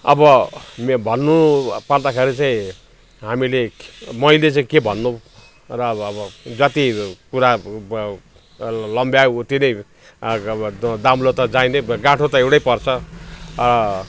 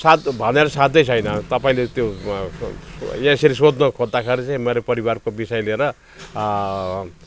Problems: none marked